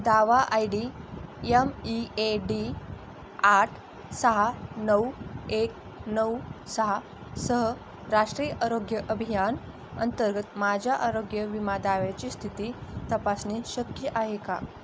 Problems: constant background noise